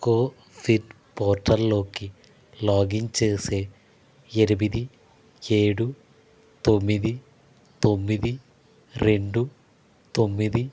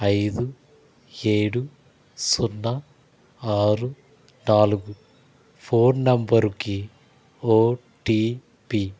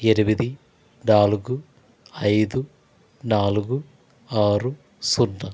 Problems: constant background noise